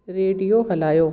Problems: echo